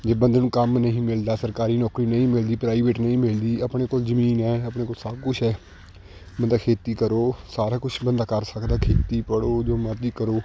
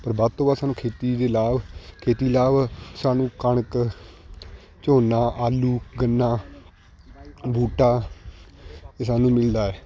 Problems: constant background noise, continuous background conversations